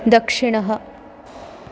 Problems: constant background noise